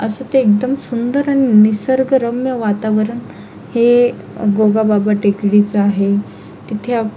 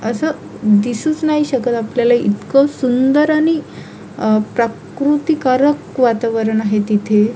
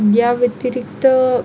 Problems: constant background noise